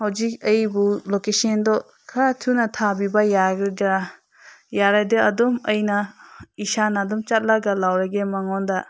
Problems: constant background noise